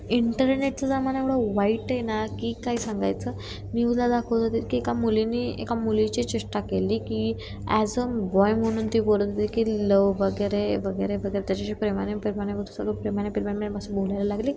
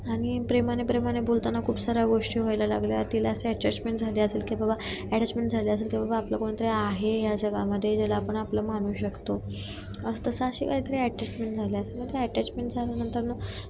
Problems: none marked